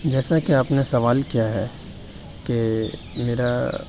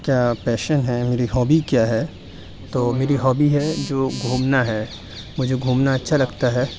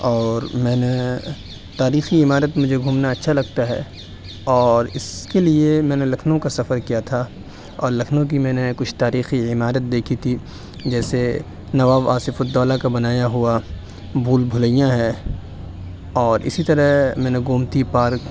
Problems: none marked